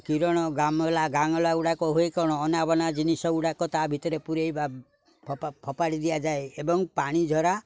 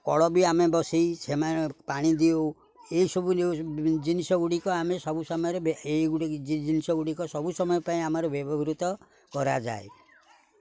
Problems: none marked